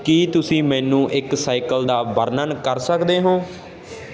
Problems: constant background noise